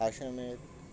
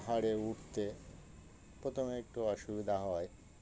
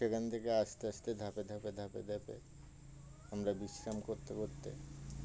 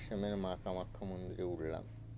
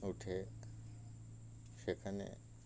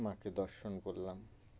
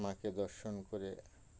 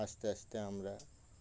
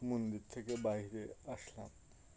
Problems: constant background noise, continuous background conversations